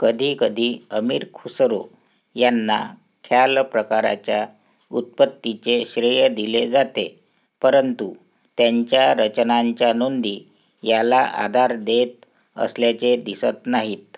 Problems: background sounds at intervals